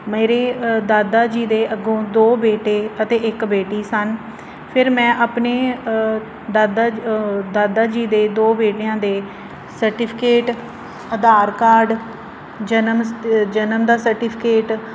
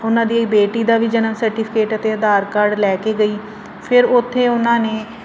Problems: constant background noise